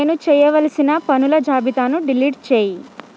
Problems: constant background noise